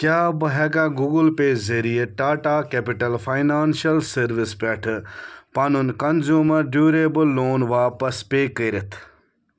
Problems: none marked